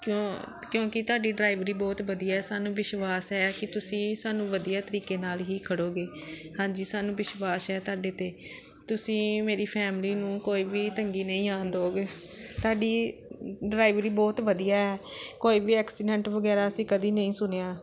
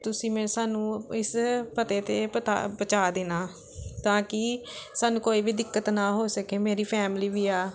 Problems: none marked